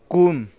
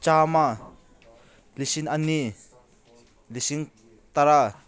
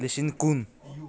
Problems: none marked